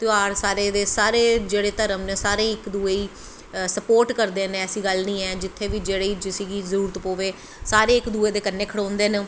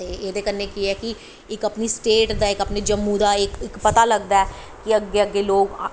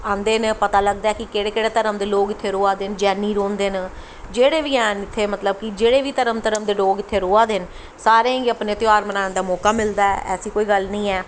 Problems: constant background noise